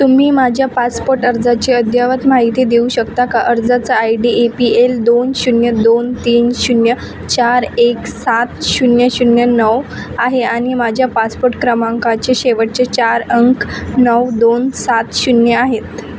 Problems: constant background noise